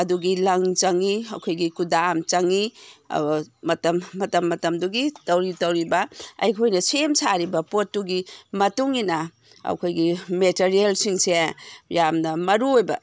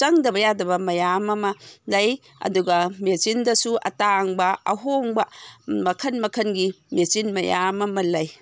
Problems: none marked